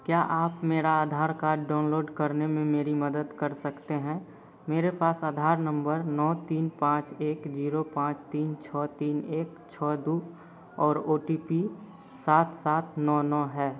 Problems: none marked